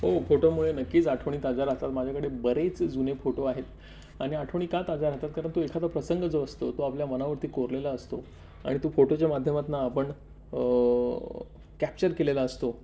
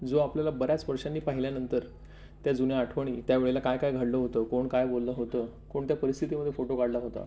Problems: none marked